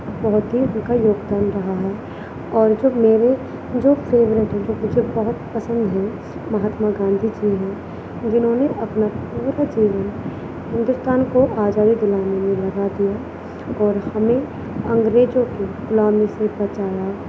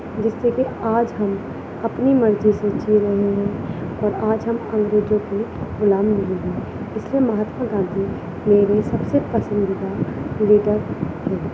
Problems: constant background noise